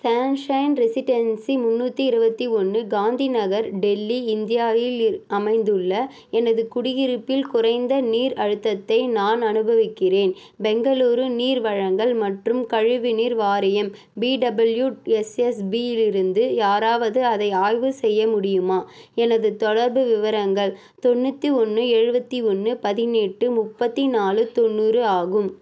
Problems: constant background noise